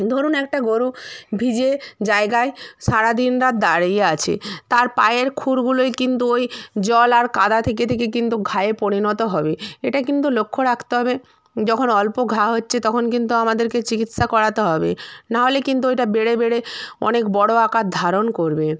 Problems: none marked